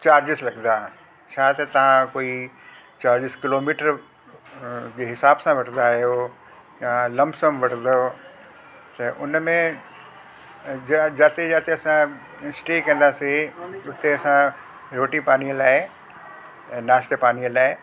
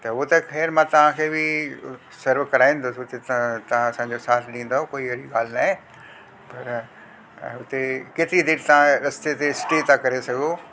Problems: constant background noise